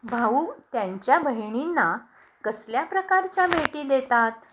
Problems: constant background noise